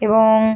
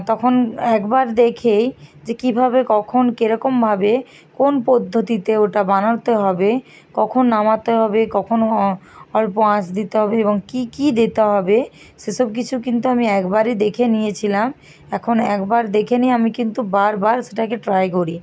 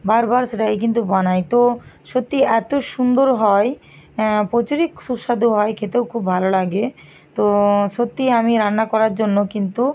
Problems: constant background noise